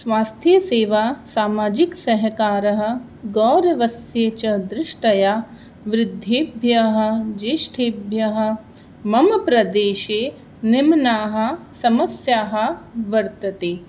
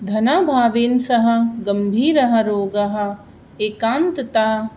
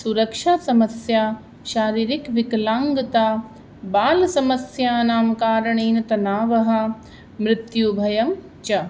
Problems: none marked